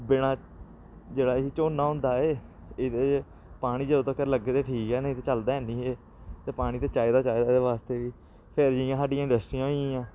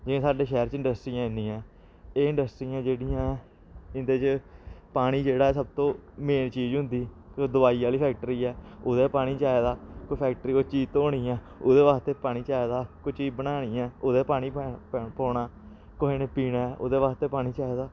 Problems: none marked